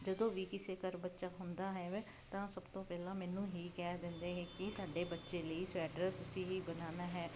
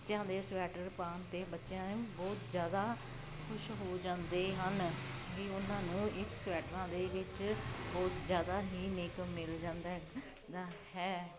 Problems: none marked